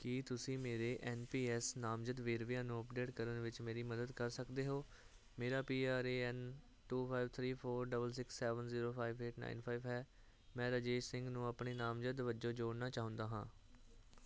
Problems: constant background noise